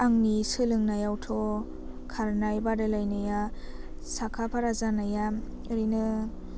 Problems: constant background noise